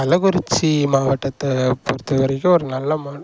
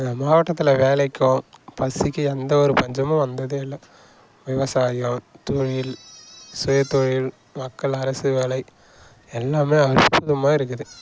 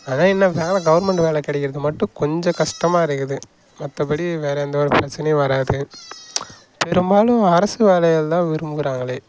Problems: background sounds at intervals